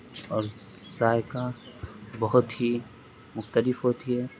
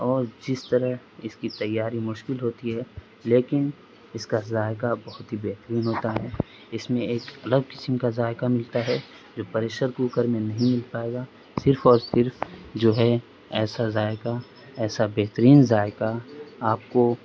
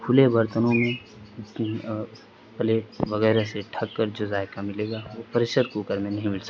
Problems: constant background noise